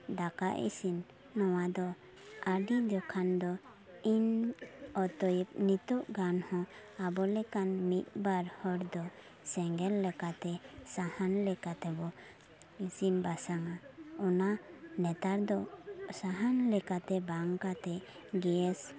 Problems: background sounds at intervals, continuous background conversations